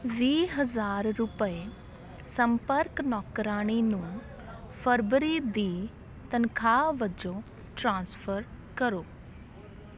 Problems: continuous background conversations